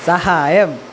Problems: constant background noise